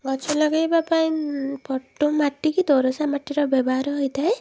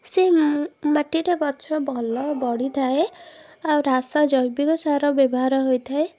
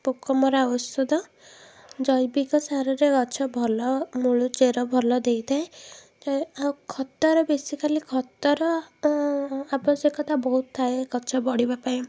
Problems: background sounds at intervals